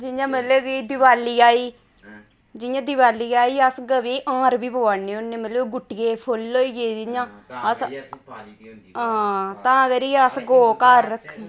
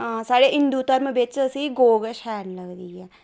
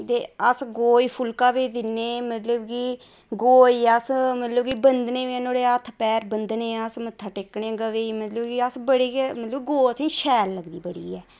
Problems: none marked